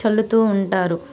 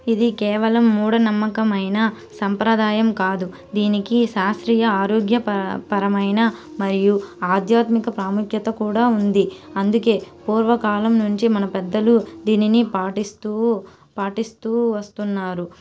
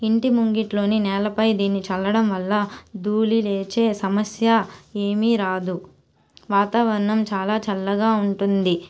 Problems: constant background noise